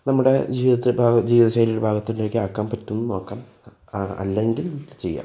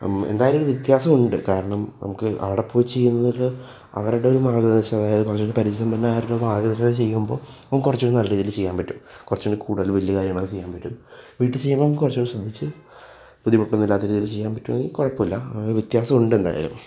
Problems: none marked